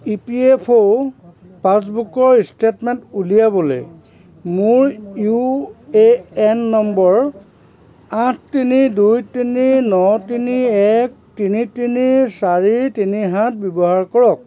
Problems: background sounds at intervals, continuous background conversations